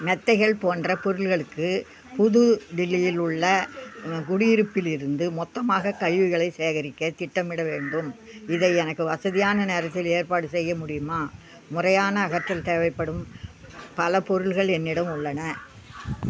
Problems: constant background noise, low volume